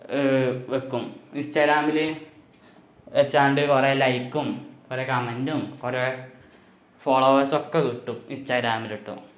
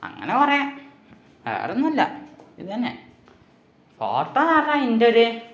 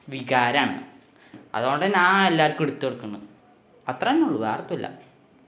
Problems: background sounds at intervals